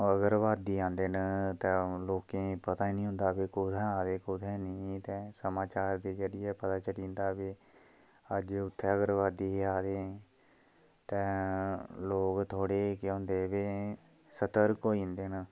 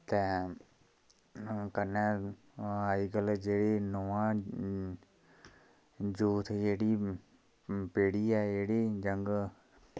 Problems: none marked